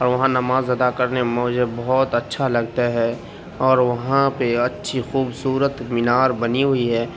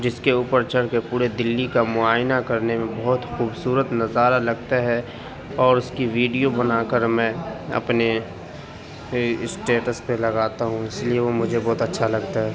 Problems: none marked